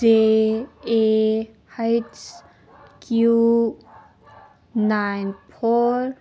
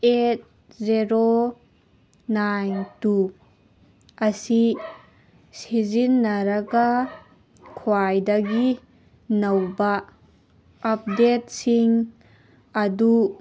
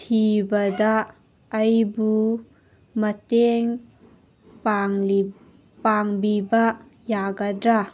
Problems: background sounds at intervals